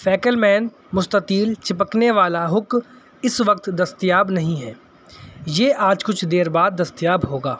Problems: none marked